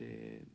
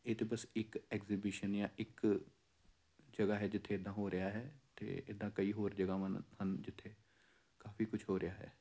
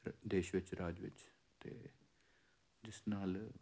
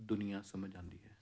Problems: none marked